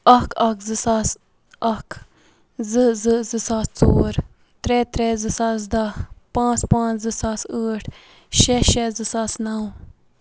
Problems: constant background noise